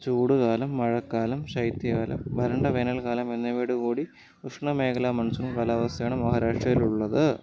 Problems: low volume